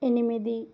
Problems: low volume